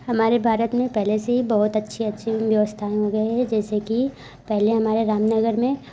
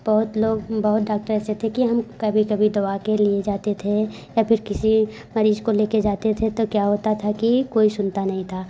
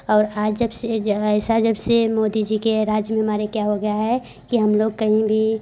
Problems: background sounds at intervals